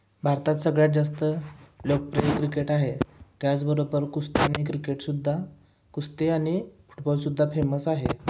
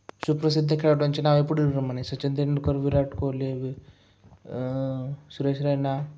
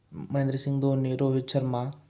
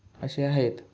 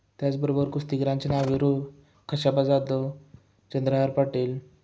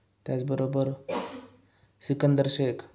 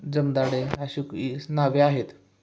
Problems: background sounds at intervals, echo